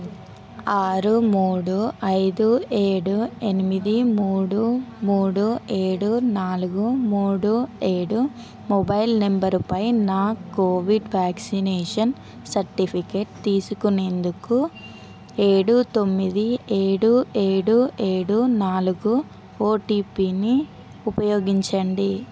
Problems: none marked